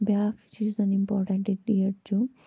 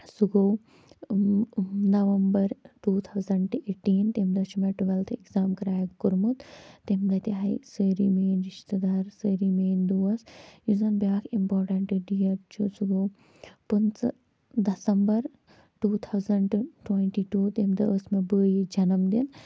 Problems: low volume